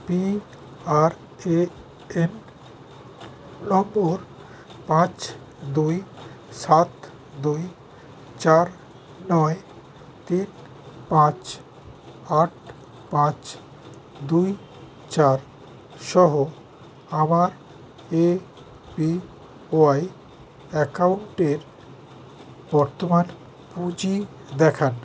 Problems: constant background noise